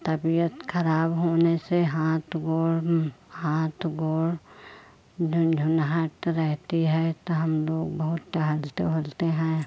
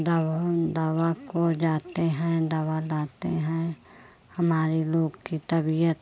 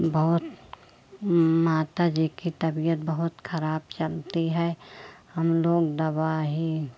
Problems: none marked